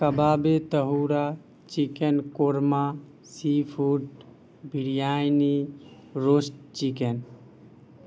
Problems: background sounds at intervals